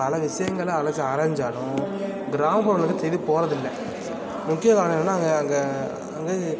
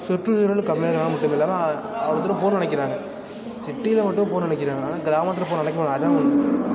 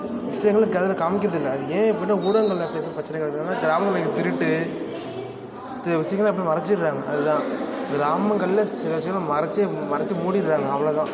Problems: constant background noise, continuous background conversations